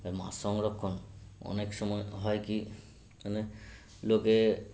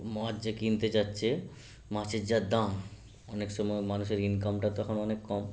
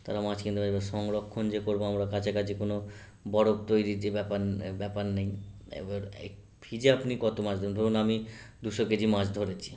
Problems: constant background noise